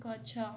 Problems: low volume